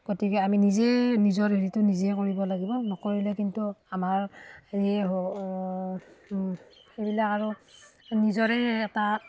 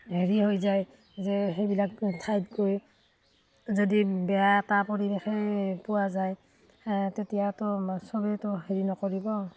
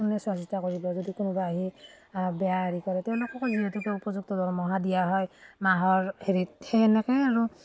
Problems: none marked